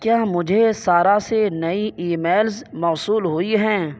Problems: background sounds at intervals